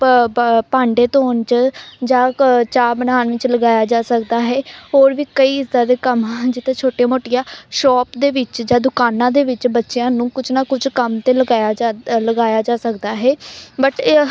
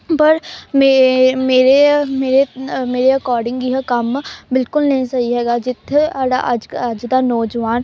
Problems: constant background noise, background conversations at intervals